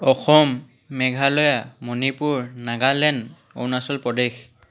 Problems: background sounds at intervals, background conversations at intervals